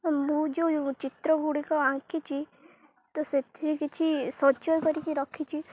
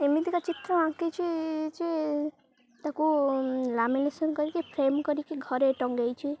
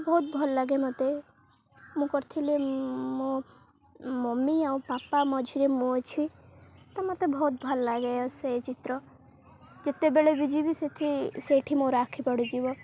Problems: constant background noise